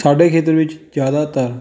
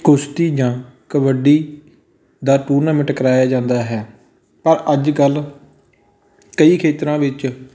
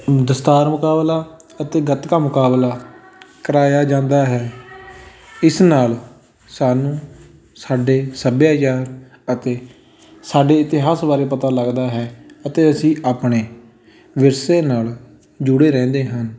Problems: background sounds at intervals, continuous background conversations